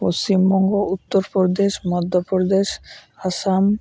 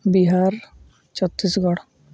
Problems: none marked